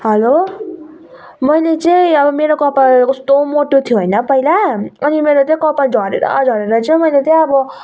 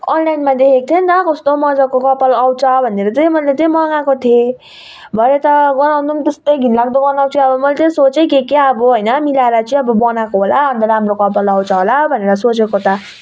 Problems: constant background noise